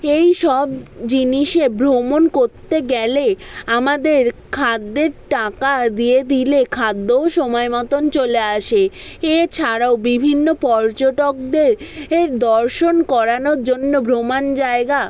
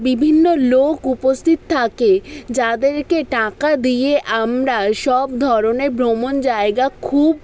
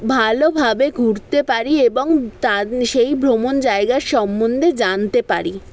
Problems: background conversations at intervals